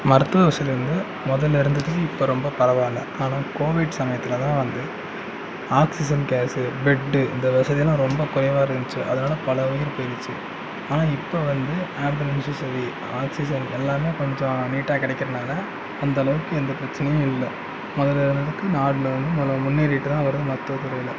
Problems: background sounds at intervals